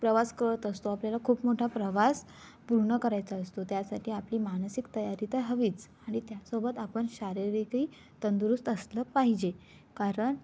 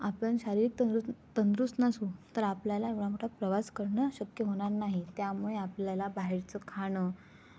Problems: constant background noise